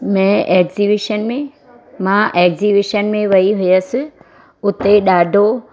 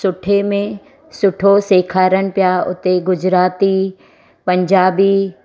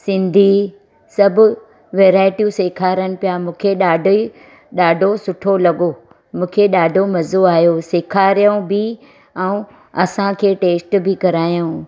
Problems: constant background noise